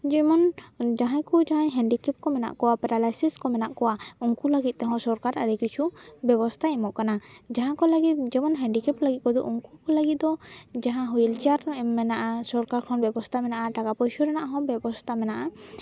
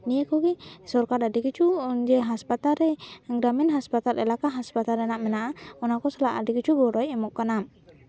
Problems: background sounds at intervals, background conversations at intervals